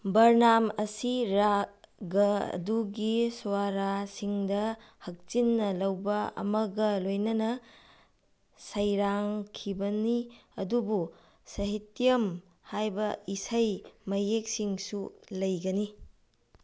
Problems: background sounds at intervals